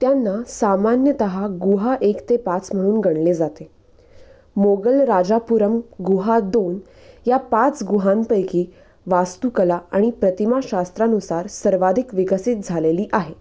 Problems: constant background noise